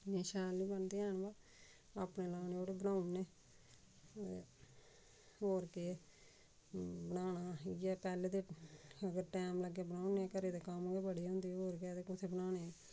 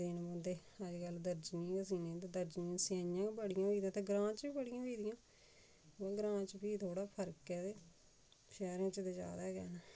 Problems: constant background noise, background conversations at intervals, low volume